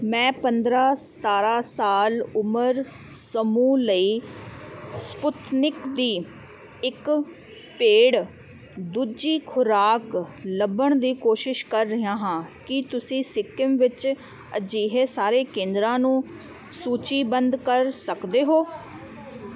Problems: constant background noise